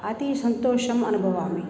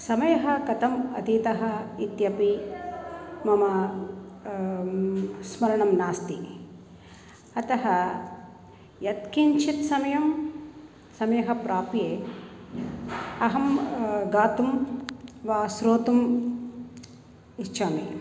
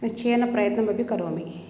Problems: none marked